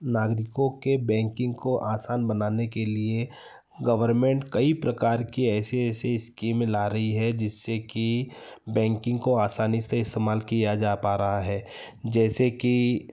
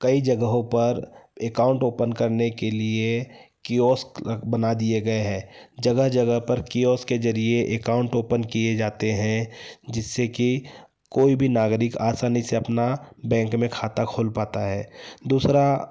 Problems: none marked